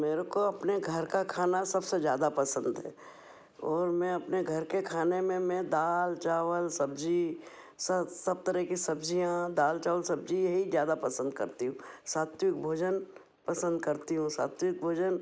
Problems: background sounds at intervals